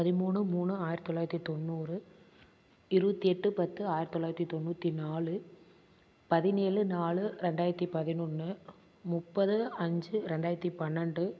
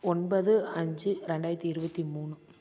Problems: constant background noise